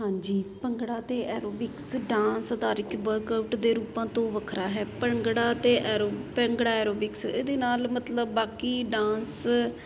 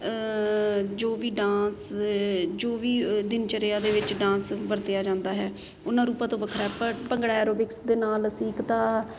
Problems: constant background noise